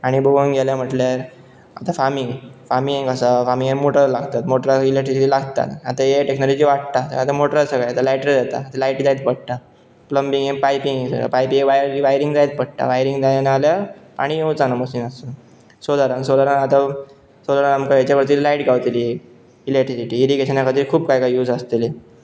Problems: constant background noise